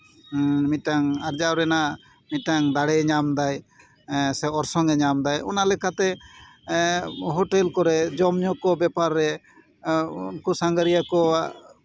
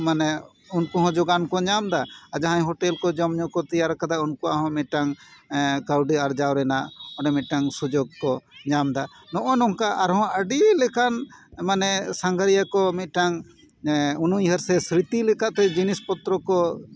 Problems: none marked